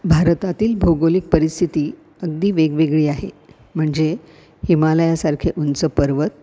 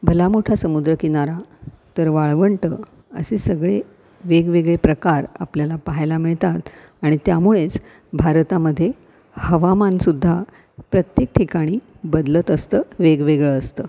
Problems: constant background noise